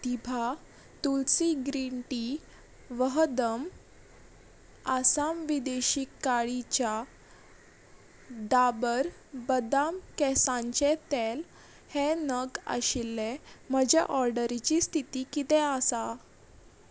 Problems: none marked